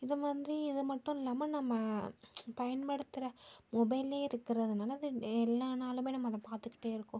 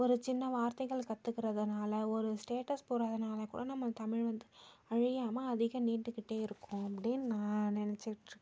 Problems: low volume